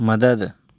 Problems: constant background noise